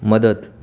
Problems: background sounds at intervals